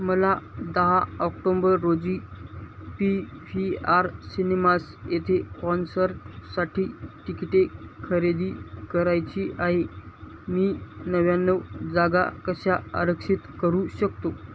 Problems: constant background noise